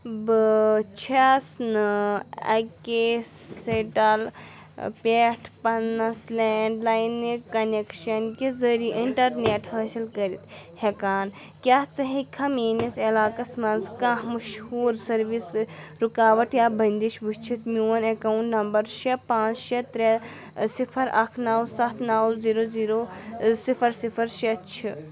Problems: none marked